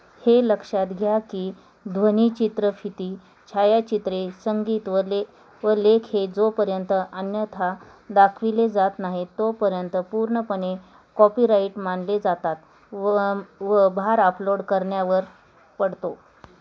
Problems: constant background noise